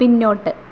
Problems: constant background noise, low volume